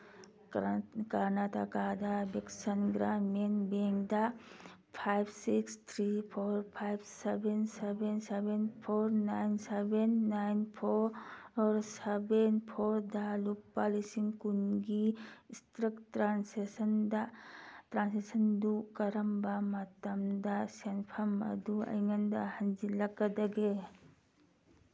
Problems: background sounds at intervals